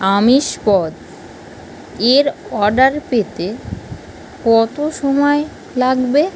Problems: none marked